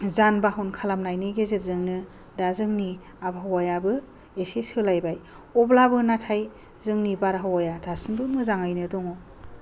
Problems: low volume